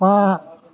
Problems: background conversations at intervals